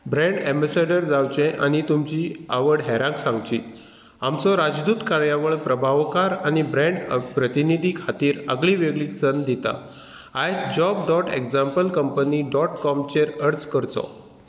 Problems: none marked